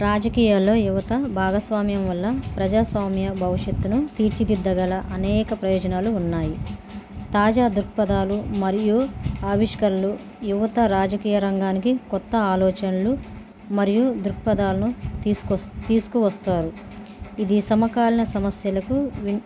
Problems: constant background noise